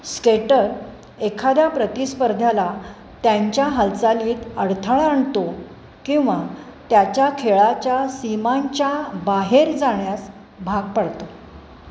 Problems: constant background noise